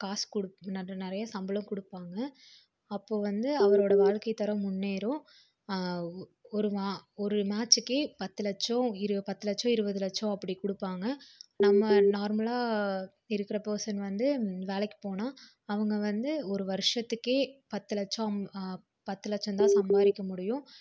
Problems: none marked